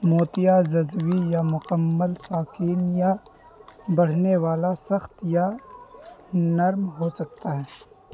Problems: constant background noise